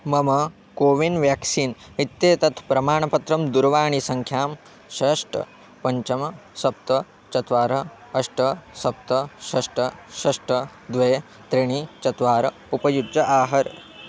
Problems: constant background noise